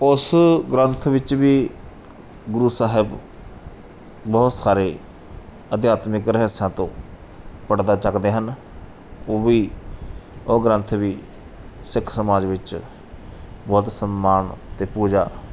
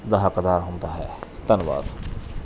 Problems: background sounds at intervals